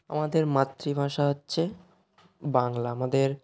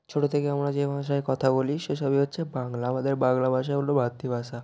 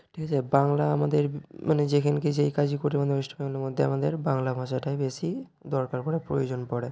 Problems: none marked